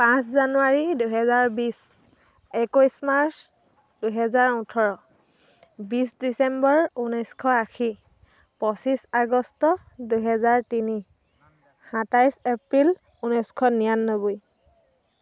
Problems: constant background noise